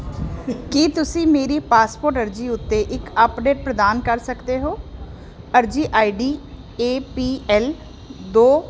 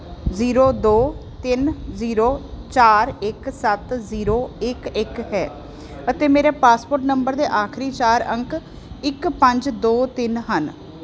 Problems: constant background noise